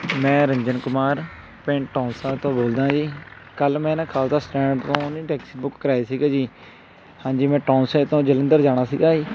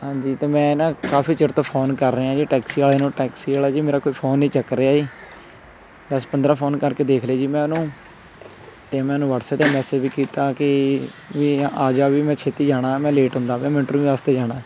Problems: constant background noise